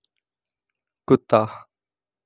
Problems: none marked